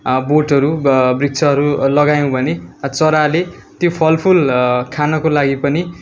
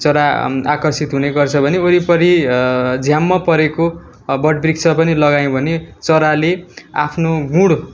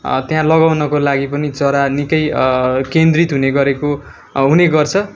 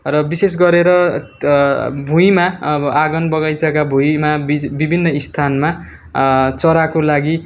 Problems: constant background noise